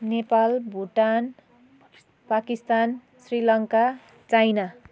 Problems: continuous background conversations